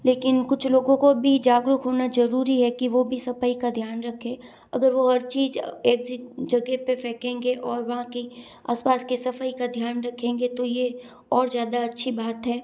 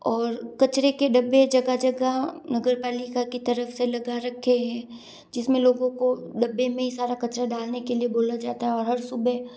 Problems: none marked